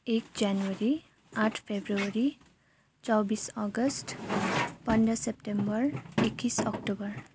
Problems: continuous background conversations